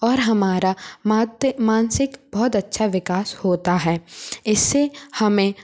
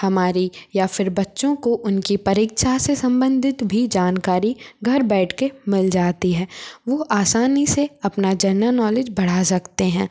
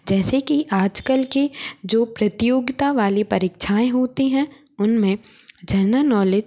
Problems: none marked